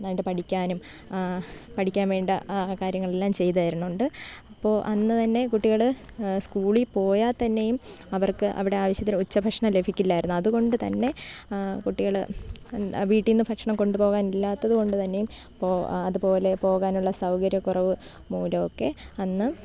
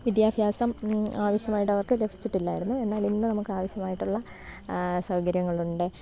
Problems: none marked